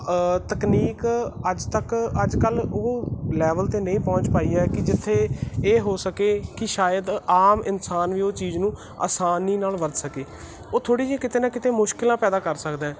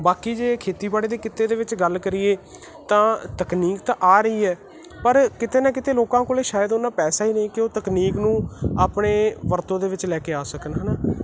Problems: background sounds at intervals